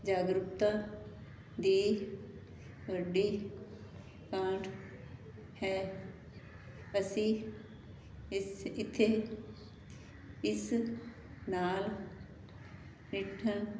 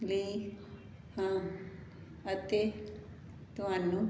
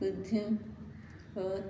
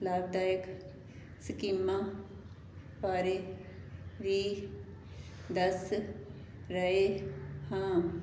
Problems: none marked